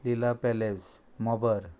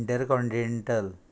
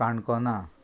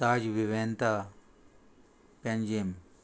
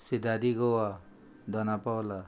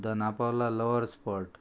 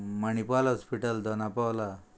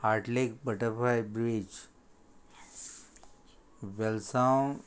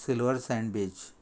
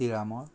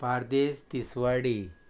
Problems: constant background noise